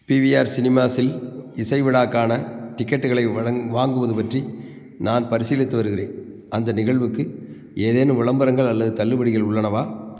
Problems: constant background noise